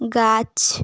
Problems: constant background noise